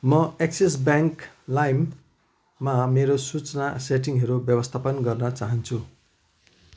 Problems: constant background noise